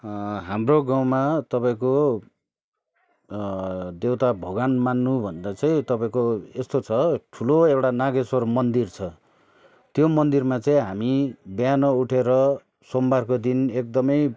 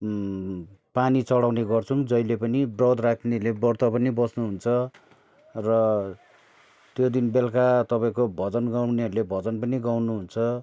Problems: none marked